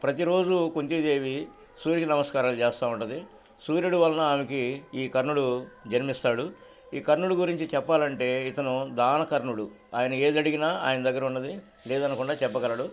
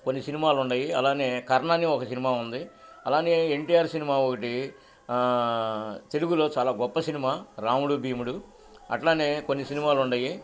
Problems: none marked